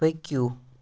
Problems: none marked